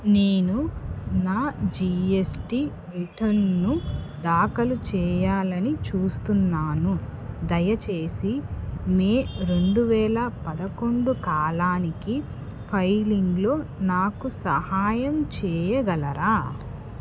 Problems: background sounds at intervals